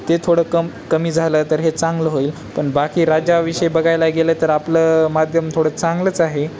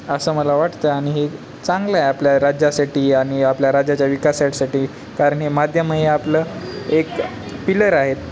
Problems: constant background noise, background conversations at intervals